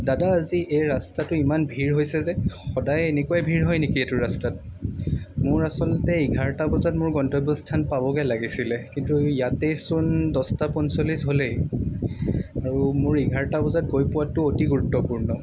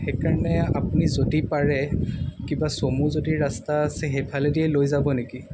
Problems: constant background noise